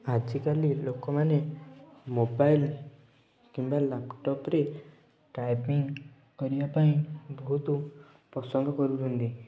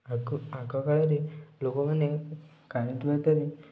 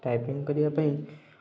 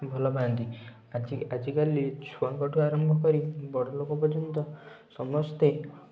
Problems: low volume